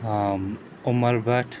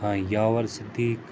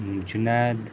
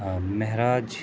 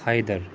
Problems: constant background noise